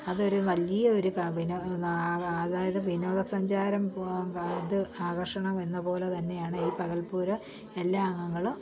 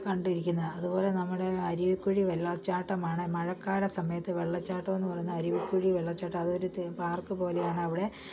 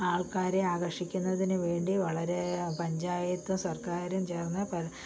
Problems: low volume